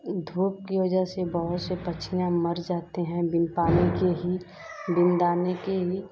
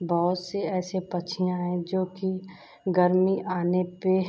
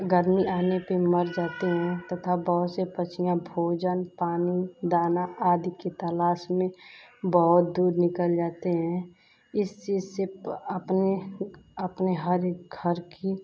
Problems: none marked